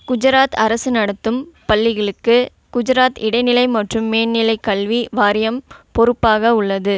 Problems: none marked